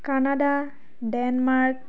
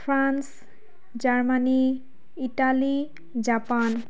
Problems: background sounds at intervals, background conversations at intervals